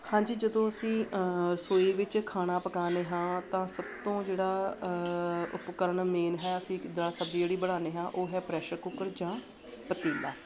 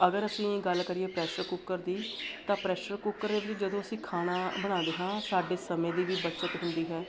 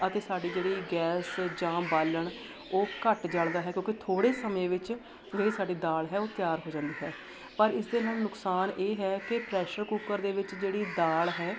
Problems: none marked